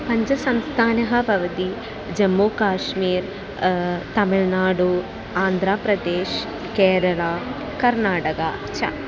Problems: none marked